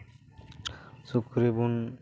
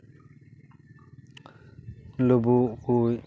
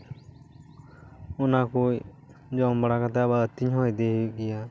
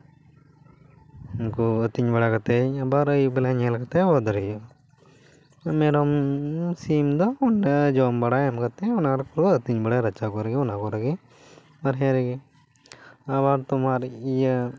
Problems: background sounds at intervals, background conversations at intervals